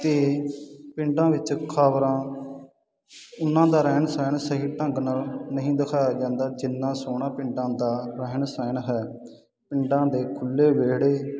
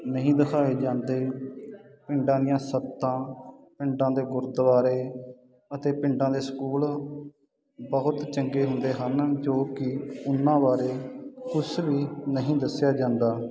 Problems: constant background noise